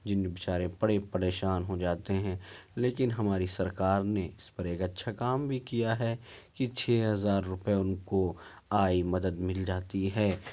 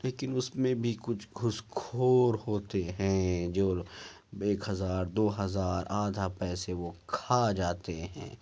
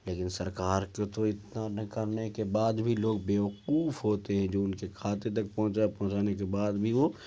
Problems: low volume